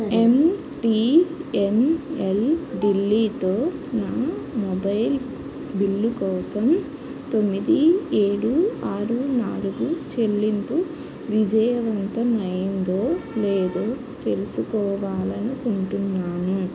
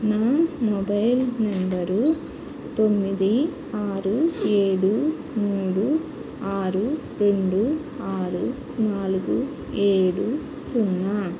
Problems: constant background noise, background conversations at intervals